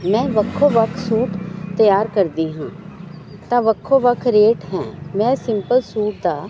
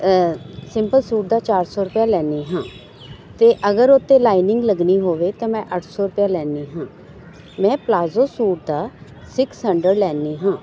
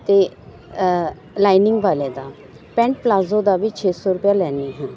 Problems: none marked